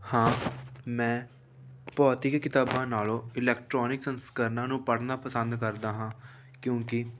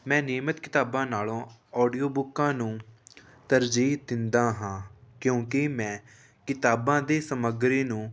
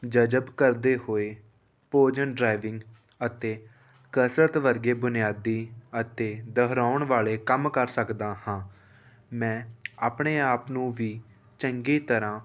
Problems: none marked